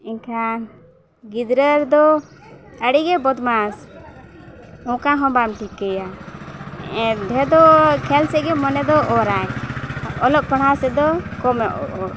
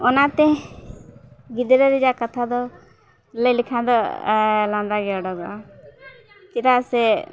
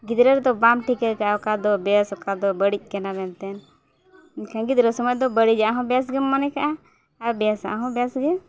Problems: continuous background conversations